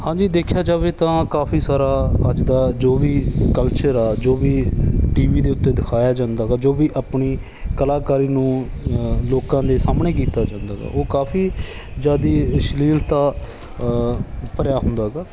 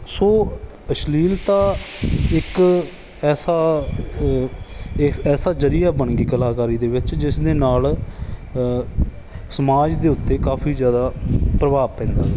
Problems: none marked